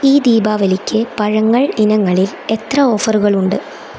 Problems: constant background noise